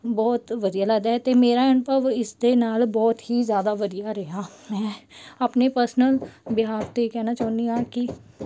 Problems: background sounds at intervals